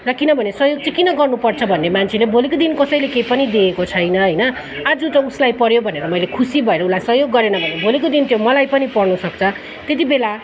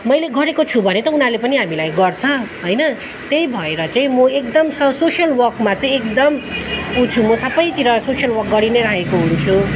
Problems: constant background noise